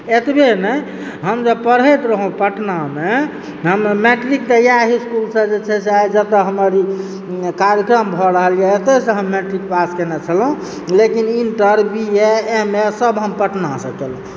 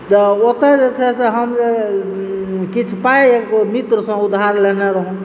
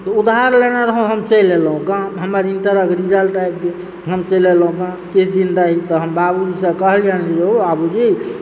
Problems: background sounds at intervals